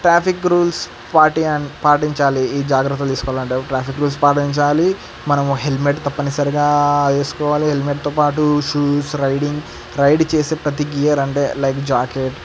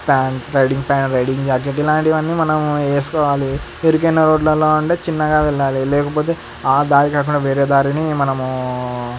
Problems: constant background noise